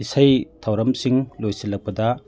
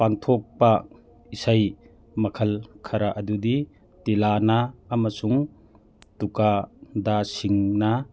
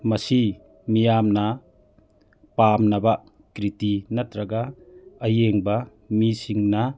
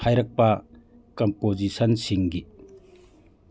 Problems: background sounds at intervals